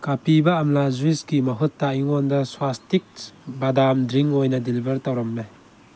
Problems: constant background noise